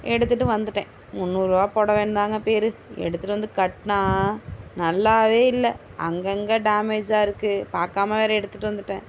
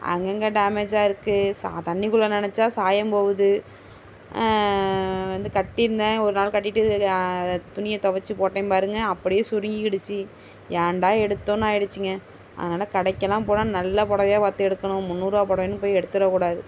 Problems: constant background noise